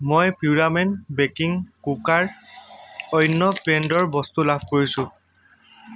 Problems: constant background noise